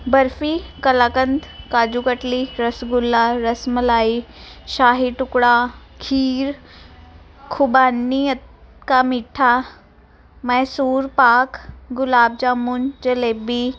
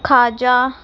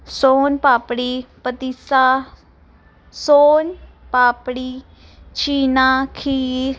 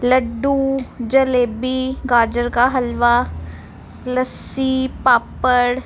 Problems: none marked